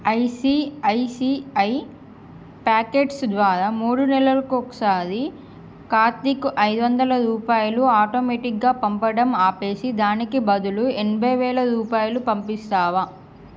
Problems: constant background noise